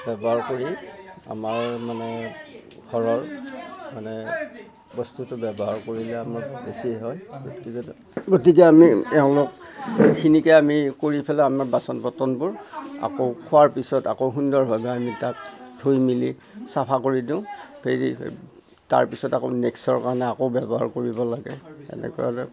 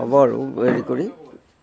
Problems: constant background noise